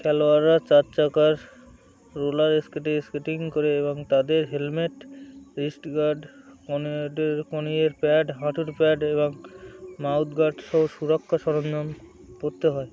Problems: constant background noise